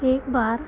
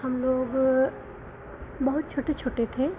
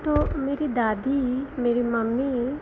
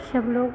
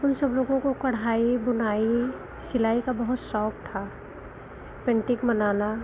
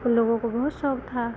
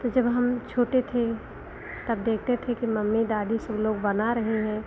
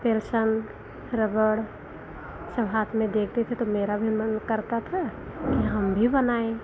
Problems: constant background noise